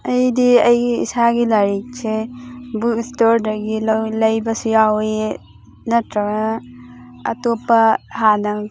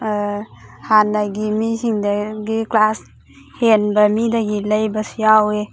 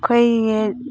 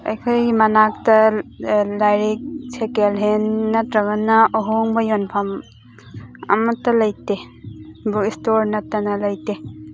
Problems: constant background noise